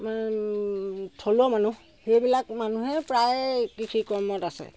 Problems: constant background noise